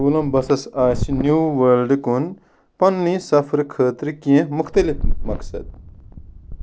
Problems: none marked